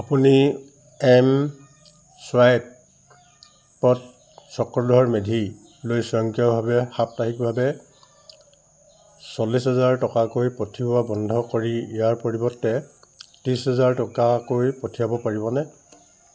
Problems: none marked